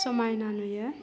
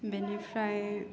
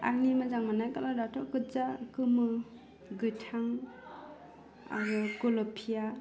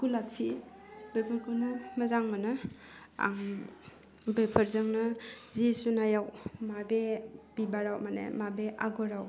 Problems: low volume